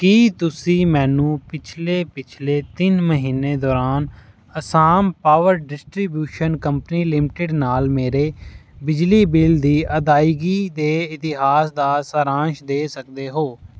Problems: background sounds at intervals